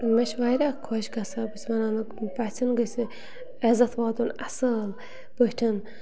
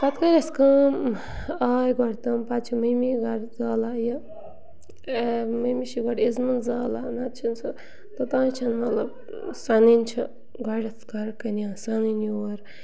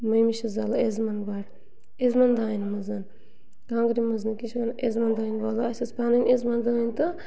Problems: constant background noise, continuous background conversations